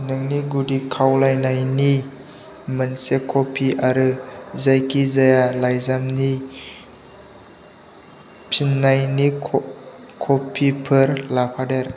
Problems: none marked